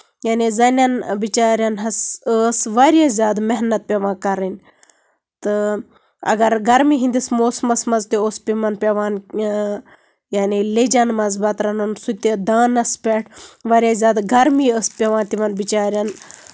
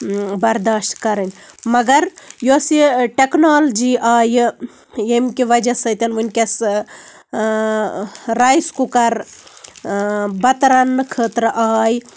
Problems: none marked